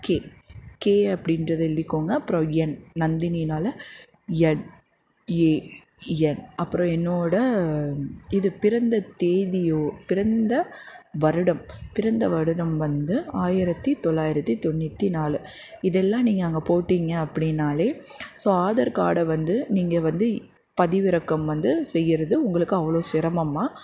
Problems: constant background noise